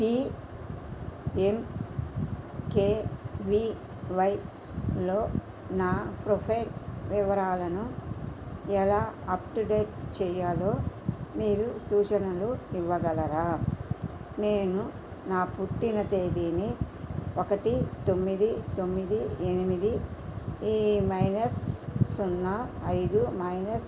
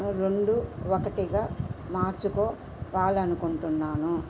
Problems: constant background noise